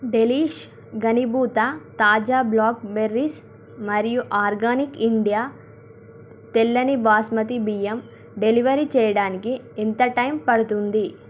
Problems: none marked